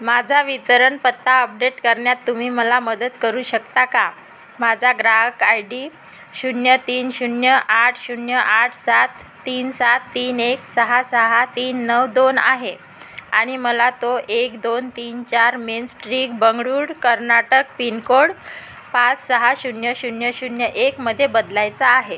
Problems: constant background noise